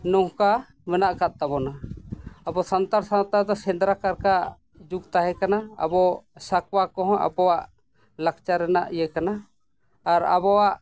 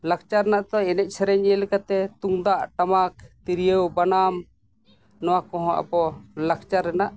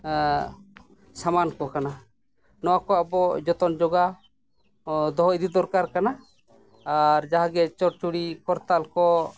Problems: background sounds at intervals